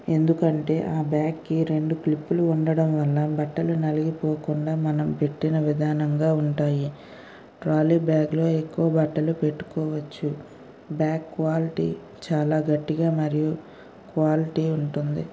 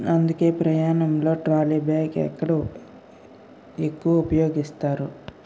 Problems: none marked